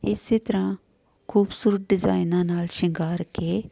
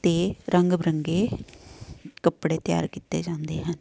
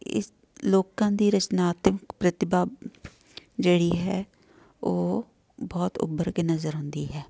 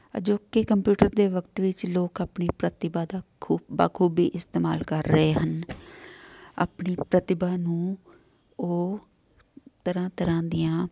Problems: none marked